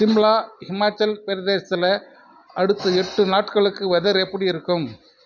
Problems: none marked